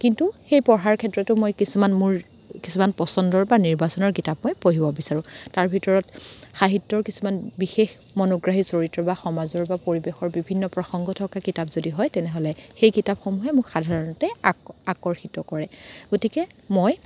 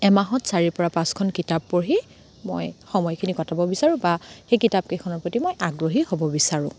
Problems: background sounds at intervals